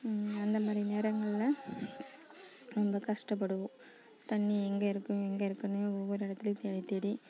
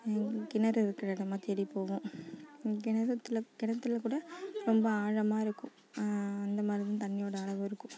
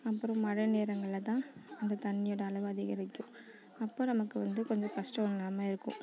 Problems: none marked